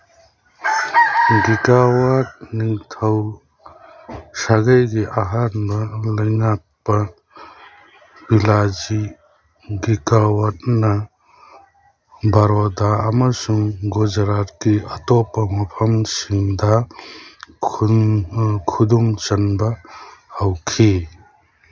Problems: constant background noise